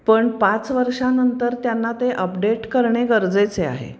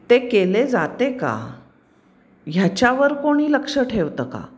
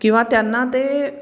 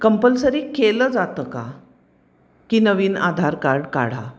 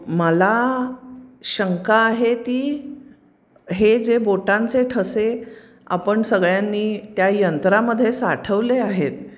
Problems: constant background noise, background conversations at intervals